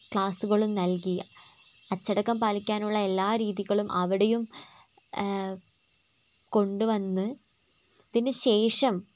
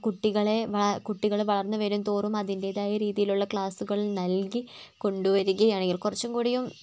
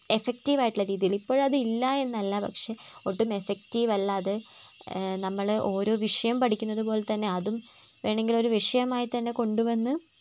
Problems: constant background noise, low volume